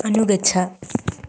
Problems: constant background noise